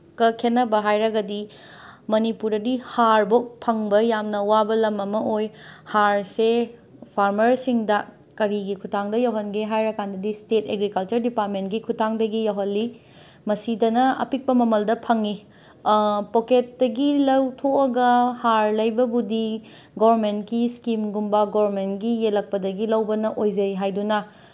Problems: background sounds at intervals